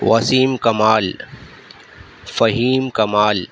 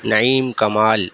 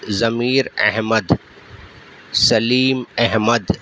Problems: constant background noise